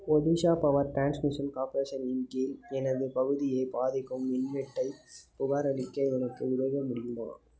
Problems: background sounds at intervals